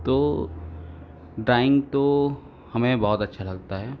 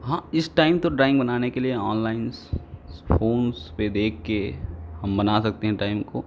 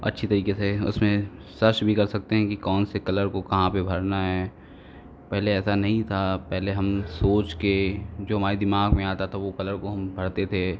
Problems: constant background noise, background conversations at intervals